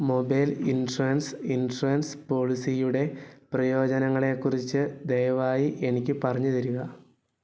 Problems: none marked